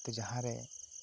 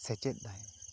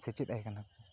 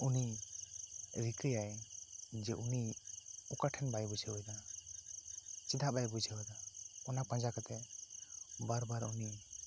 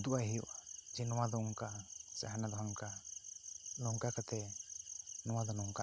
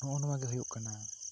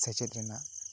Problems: constant background noise